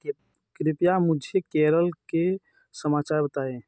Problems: none marked